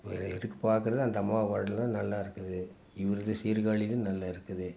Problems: background sounds at intervals